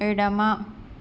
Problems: constant background noise